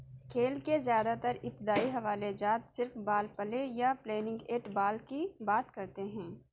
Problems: background conversations at intervals